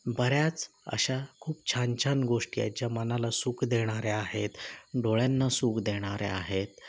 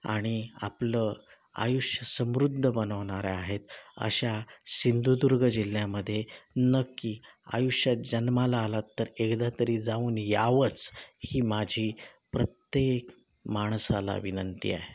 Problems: none marked